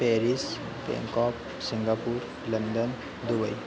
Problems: constant background noise, low volume